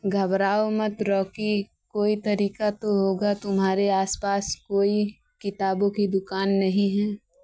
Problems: background sounds at intervals